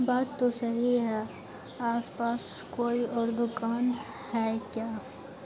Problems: constant background noise